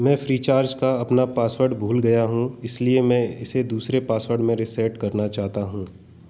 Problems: none marked